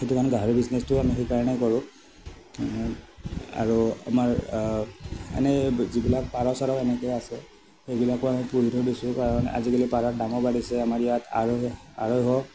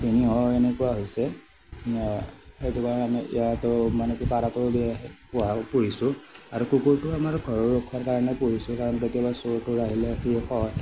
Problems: none marked